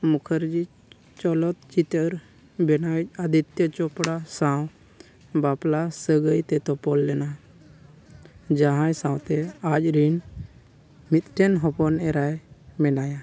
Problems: none marked